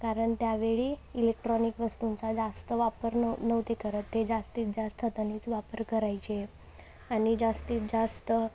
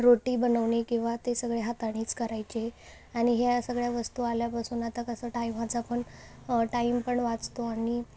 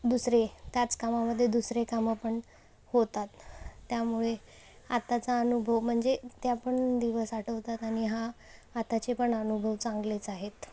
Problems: background sounds at intervals